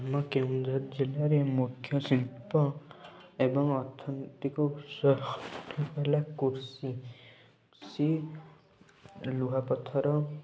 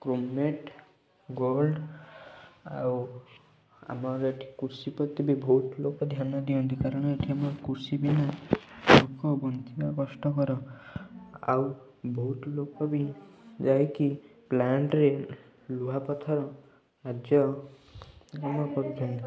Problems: constant background noise, continuous background conversations, low volume